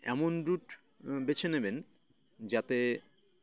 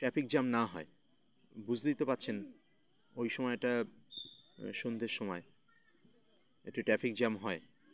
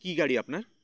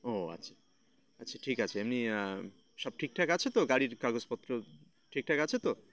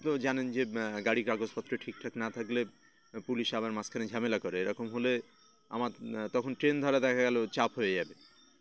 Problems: constant background noise, continuous background conversations